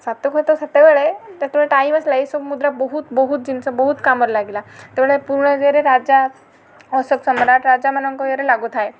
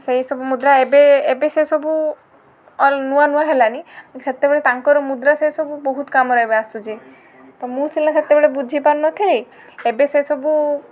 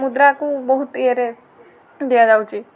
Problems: constant background noise